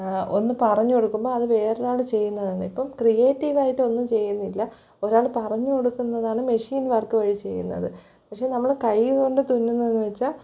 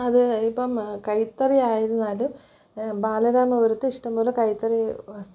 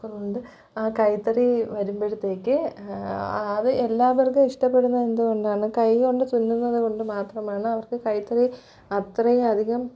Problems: low volume